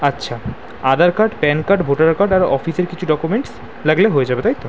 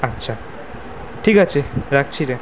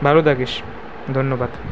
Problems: none marked